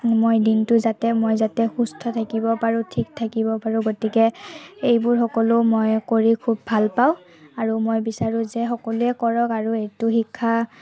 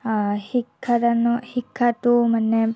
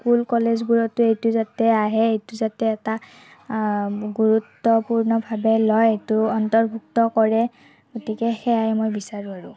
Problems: none marked